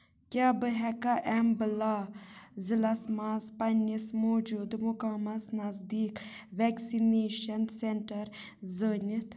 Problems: background sounds at intervals